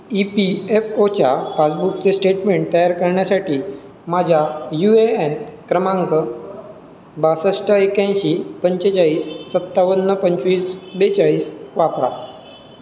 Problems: none marked